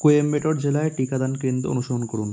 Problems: constant background noise